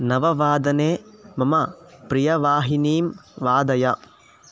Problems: background sounds at intervals